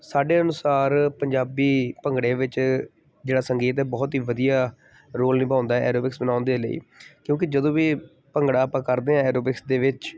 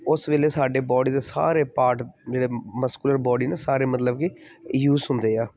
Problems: background sounds at intervals